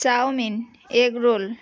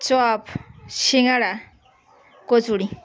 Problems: none marked